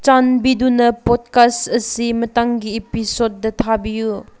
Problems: none marked